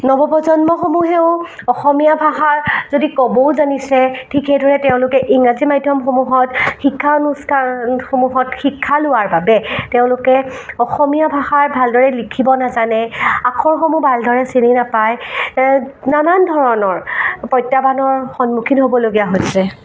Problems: constant background noise